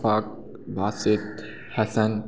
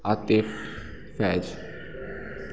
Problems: background sounds at intervals, background conversations at intervals